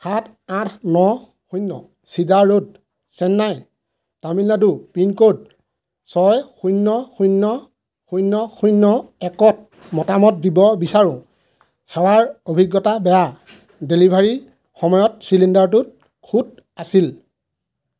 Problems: constant background noise